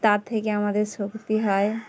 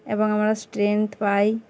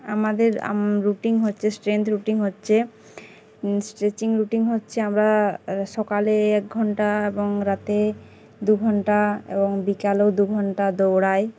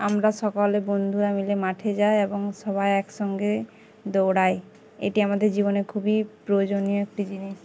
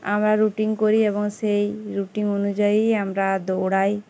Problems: constant background noise, background conversations at intervals